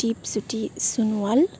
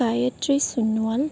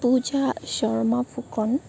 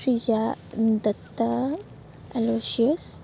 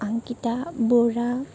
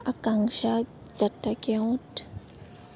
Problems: none marked